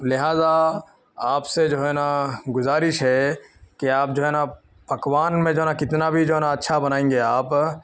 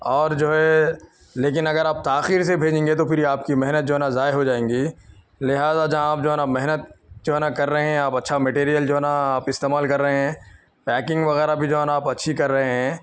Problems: background conversations at intervals